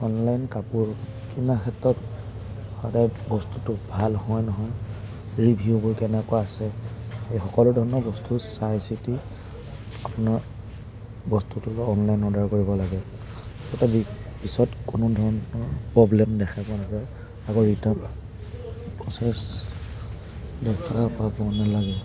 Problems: none marked